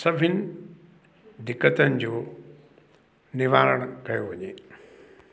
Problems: constant background noise